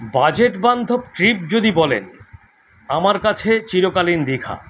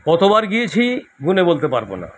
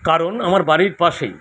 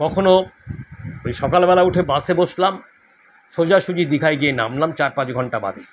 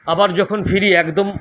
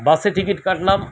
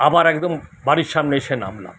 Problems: none marked